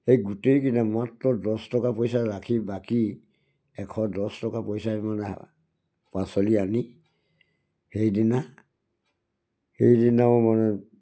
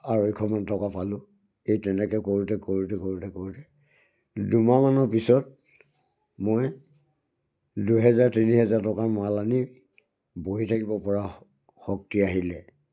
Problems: none marked